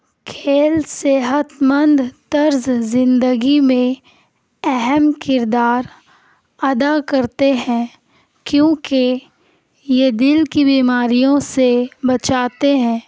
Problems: none marked